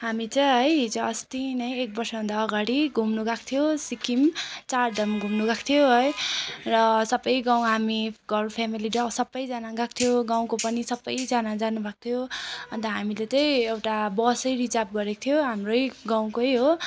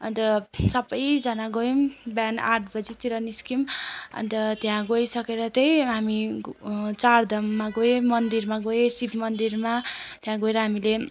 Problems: constant background noise